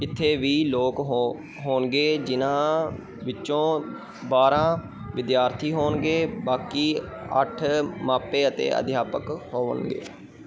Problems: continuous background conversations